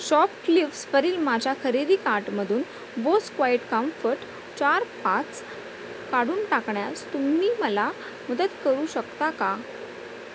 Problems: constant background noise